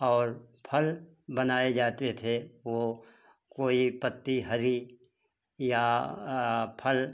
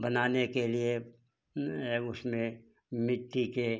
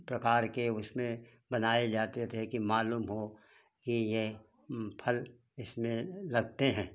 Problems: background sounds at intervals